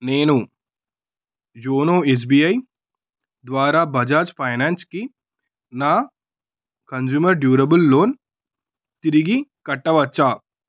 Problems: none marked